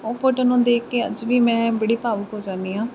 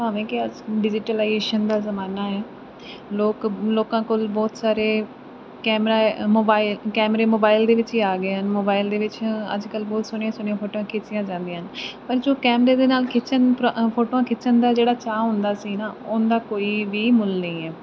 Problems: constant background noise